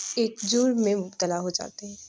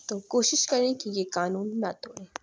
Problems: background sounds at intervals, background conversations at intervals